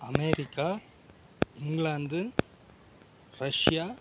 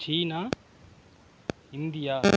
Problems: background sounds at intervals, low volume